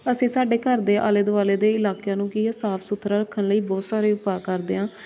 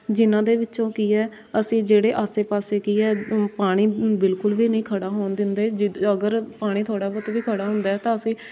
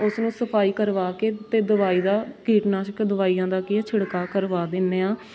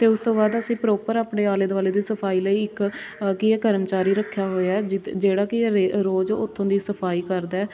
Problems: constant background noise, background conversations at intervals